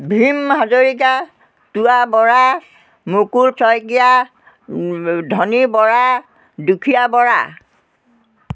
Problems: none marked